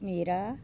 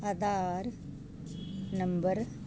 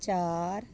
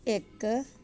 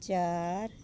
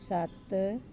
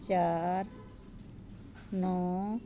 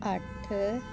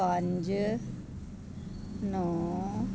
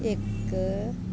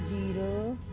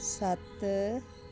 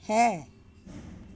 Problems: constant background noise